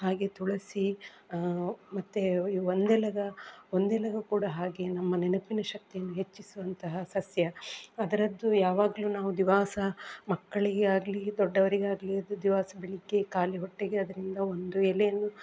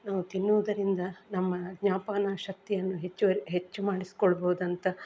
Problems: background sounds at intervals